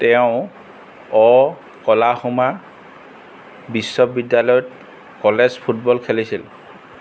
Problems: none marked